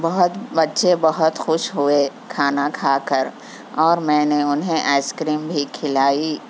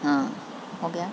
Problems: constant background noise